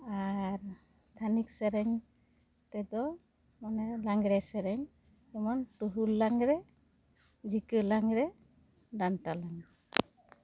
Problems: none marked